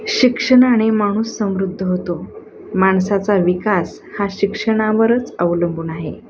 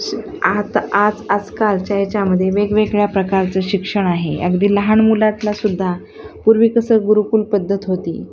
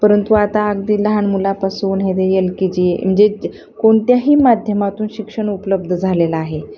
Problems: constant background noise